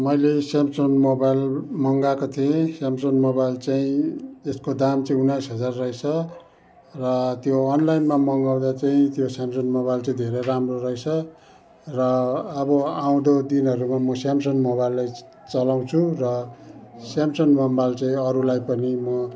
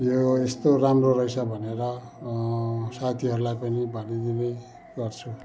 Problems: constant background noise